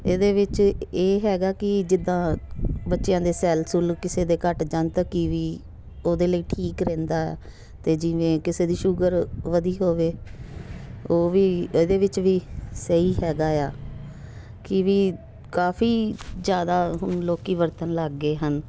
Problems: background sounds at intervals